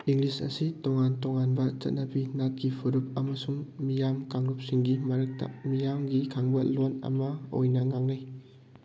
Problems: background sounds at intervals